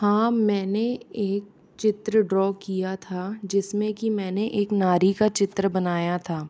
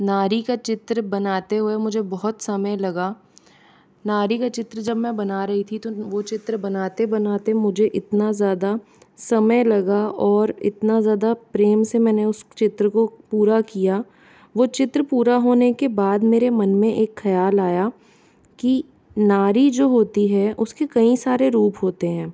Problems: none marked